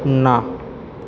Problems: constant background noise